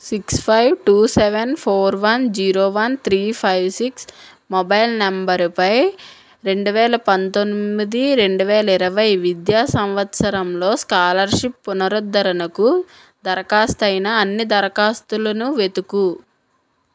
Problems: none marked